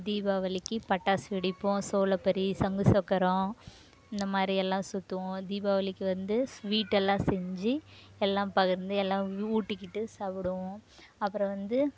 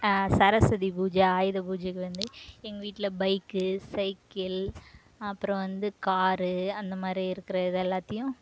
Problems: none marked